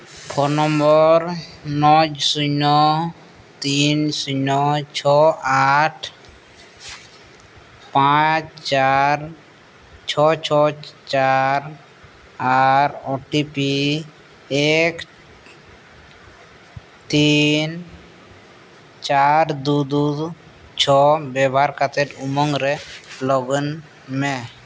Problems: background sounds at intervals